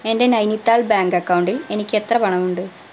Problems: none marked